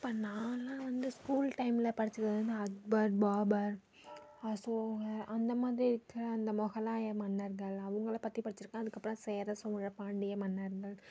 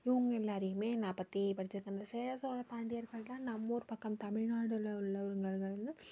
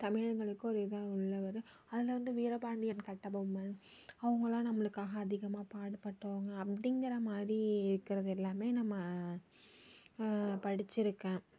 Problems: none marked